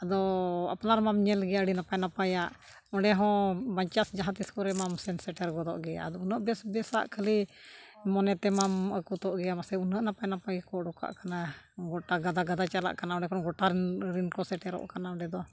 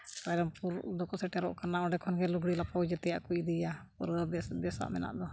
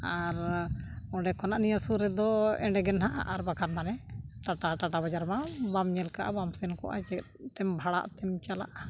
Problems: none marked